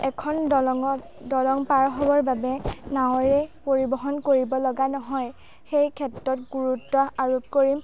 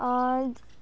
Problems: background conversations at intervals